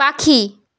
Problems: none marked